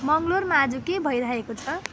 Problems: constant background noise